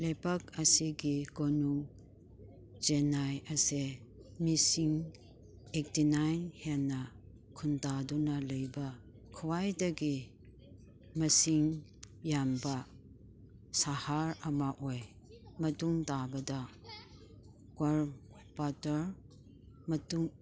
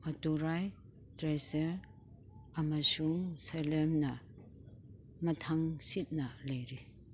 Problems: background sounds at intervals, background conversations at intervals